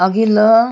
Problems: background sounds at intervals